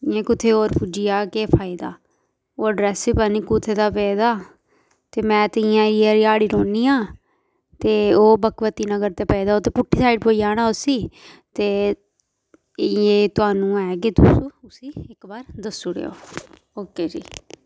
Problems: none marked